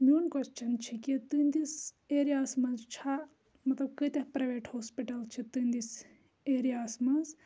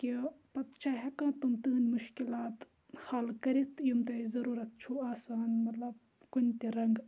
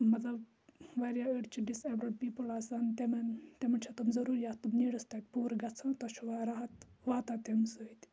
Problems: none marked